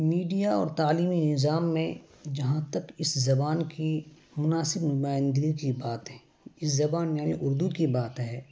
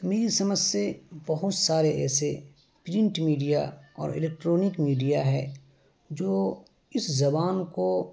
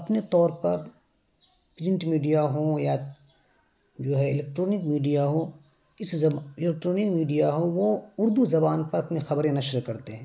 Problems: constant background noise